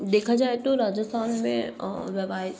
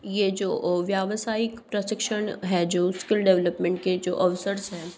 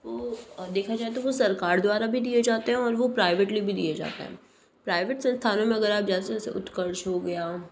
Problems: background sounds at intervals